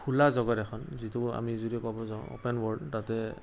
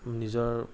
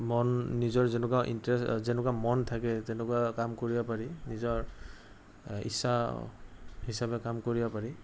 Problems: background sounds at intervals